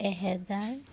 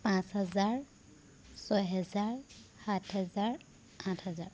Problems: constant background noise